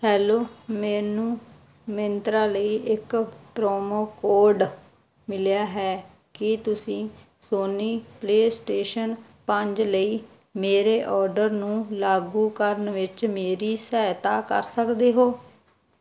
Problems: background sounds at intervals